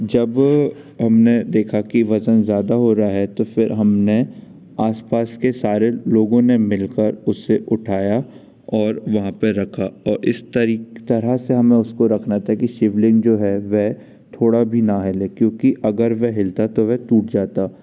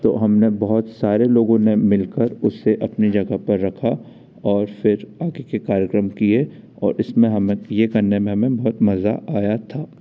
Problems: none marked